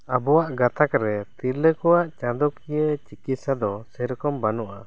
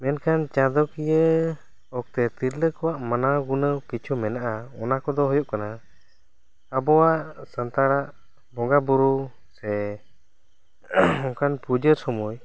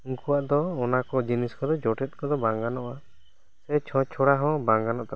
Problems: none marked